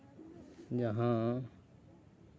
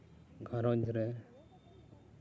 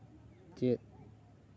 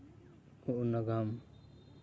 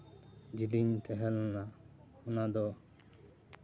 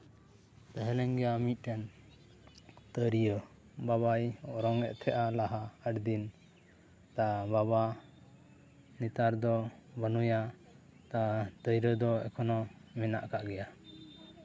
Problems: low volume